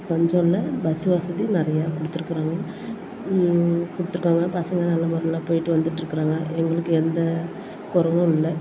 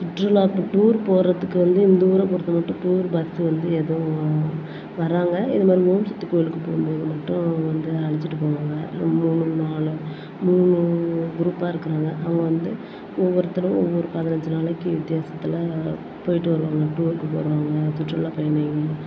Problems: none marked